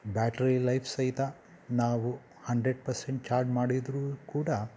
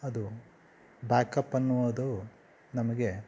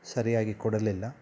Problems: background sounds at intervals